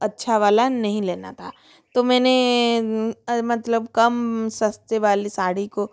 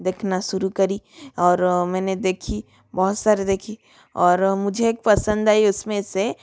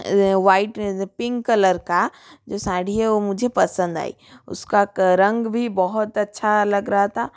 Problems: none marked